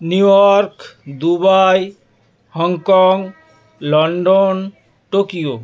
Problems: none marked